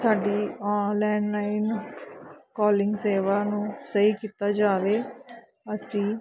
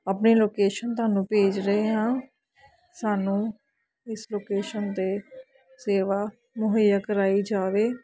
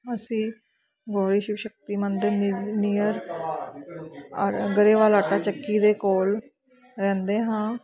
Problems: background sounds at intervals, continuous background conversations